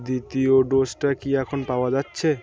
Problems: background sounds at intervals